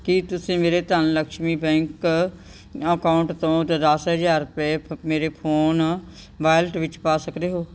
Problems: background sounds at intervals